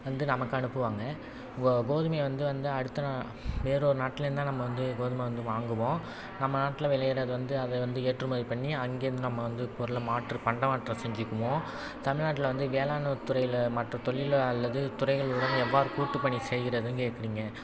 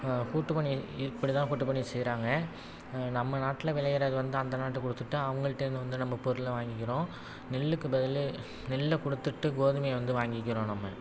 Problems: constant background noise